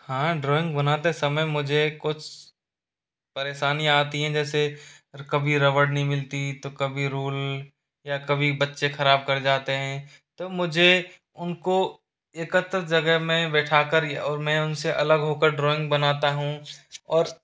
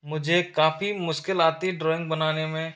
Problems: constant background noise